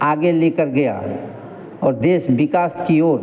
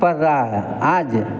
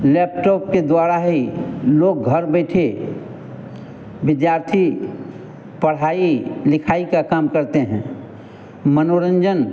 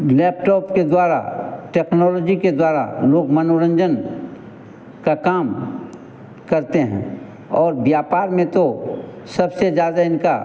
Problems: constant background noise